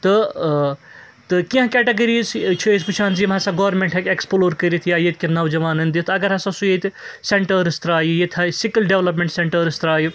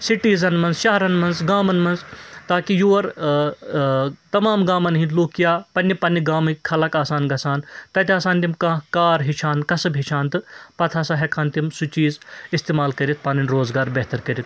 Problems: constant background noise